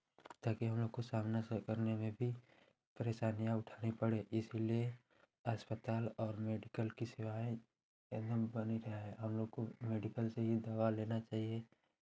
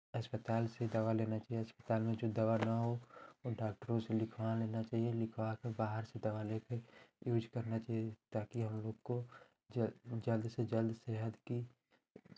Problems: none marked